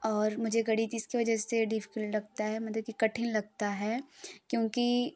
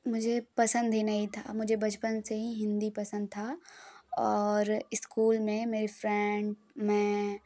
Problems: none marked